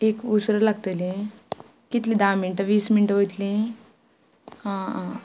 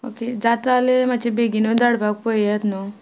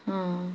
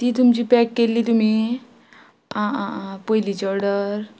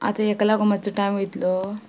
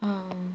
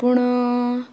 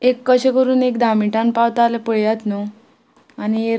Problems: background sounds at intervals